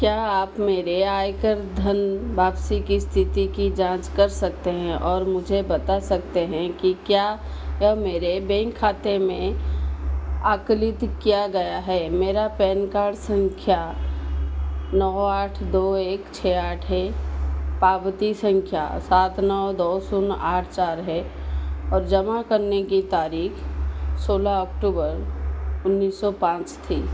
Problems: constant background noise